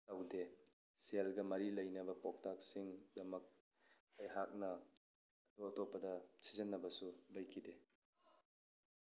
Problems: low volume